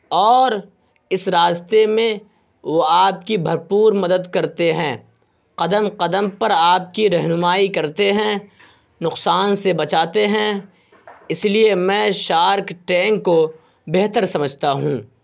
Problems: constant background noise